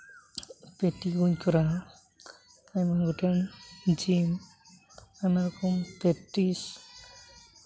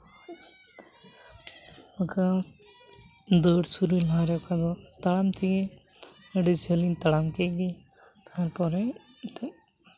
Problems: background sounds at intervals